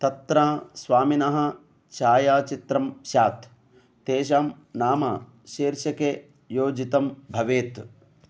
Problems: none marked